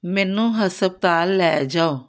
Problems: none marked